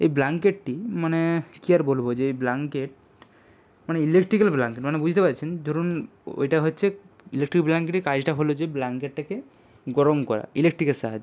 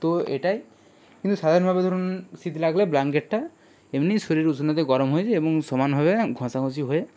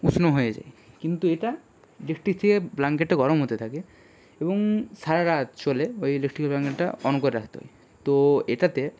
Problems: background sounds at intervals